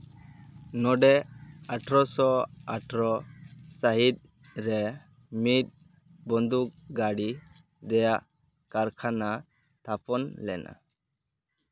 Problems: background sounds at intervals